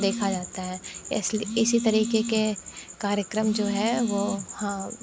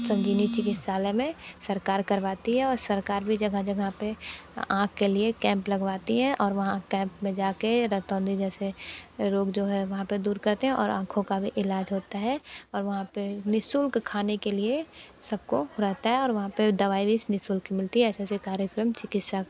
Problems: constant background noise